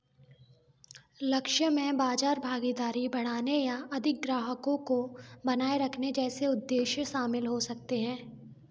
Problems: background sounds at intervals